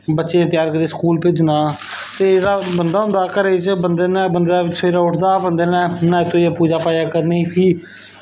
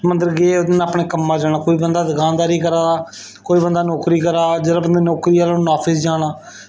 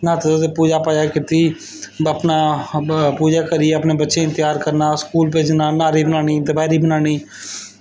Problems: background sounds at intervals